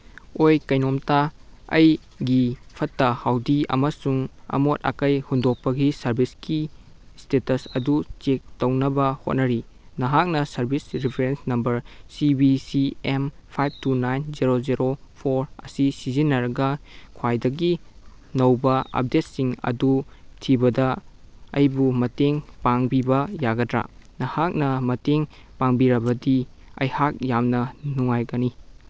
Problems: background sounds at intervals